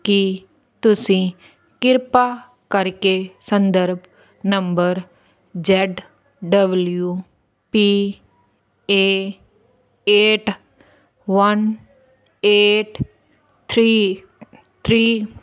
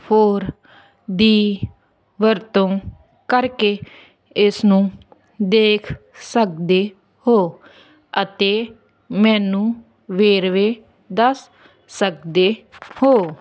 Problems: none marked